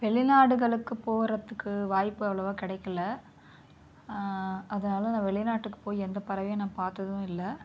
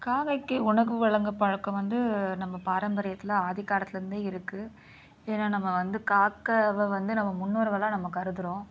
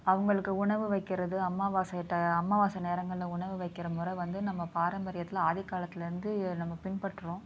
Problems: none marked